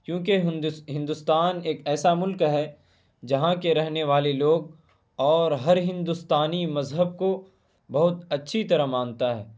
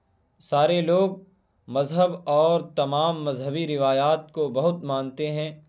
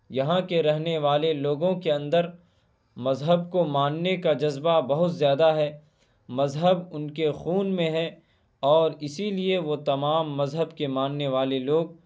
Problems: none marked